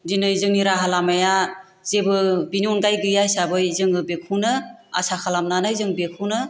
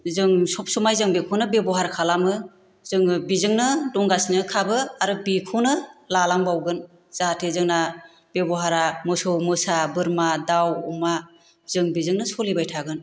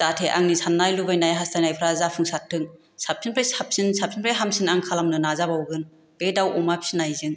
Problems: none marked